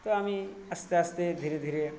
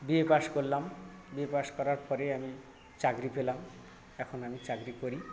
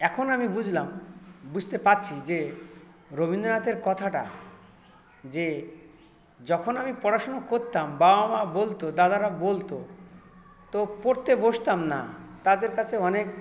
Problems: constant background noise, continuous background conversations